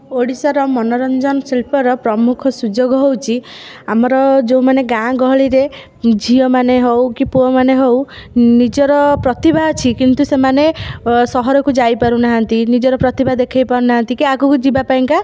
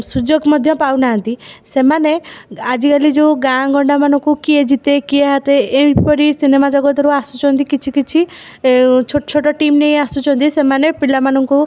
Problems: none marked